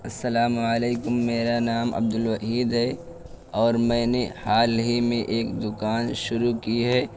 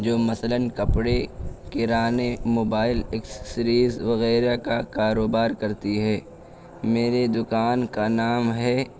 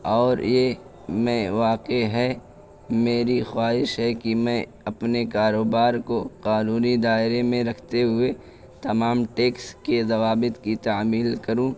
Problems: constant background noise